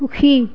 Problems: background conversations at intervals